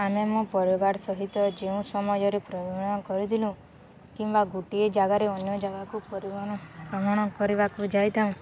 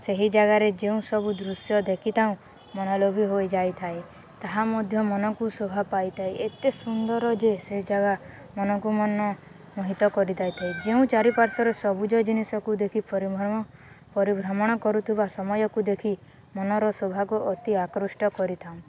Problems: constant background noise, continuous background conversations